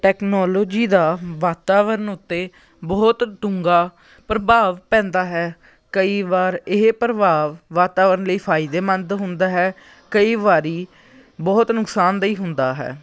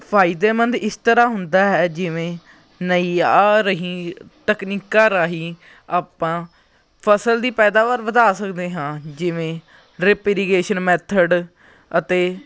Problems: continuous background conversations